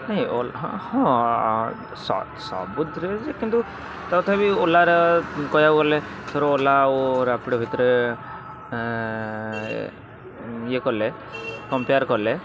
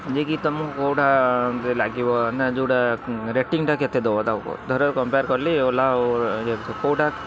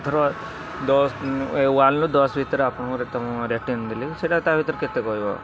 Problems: constant background noise, continuous background conversations